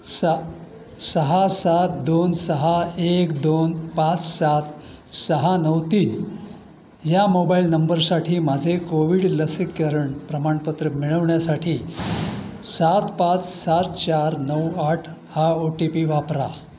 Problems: none marked